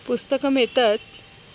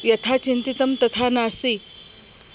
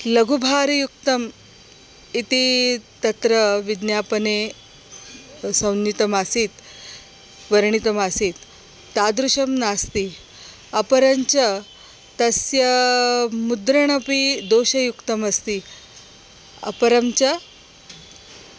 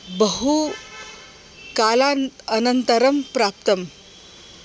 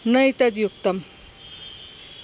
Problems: constant background noise